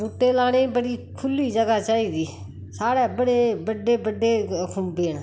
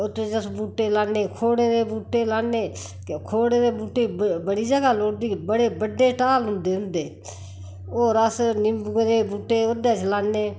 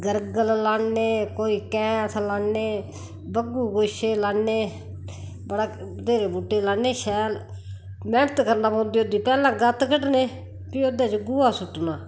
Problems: constant background noise